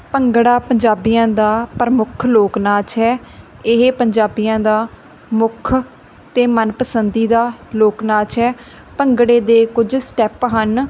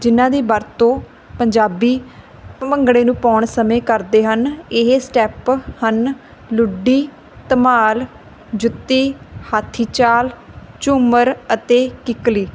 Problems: none marked